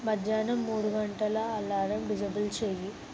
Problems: constant background noise